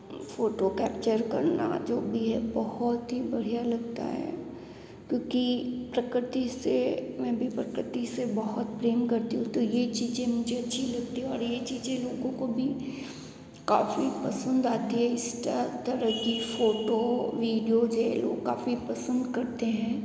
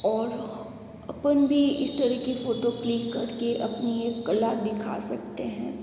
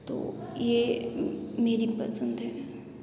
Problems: background sounds at intervals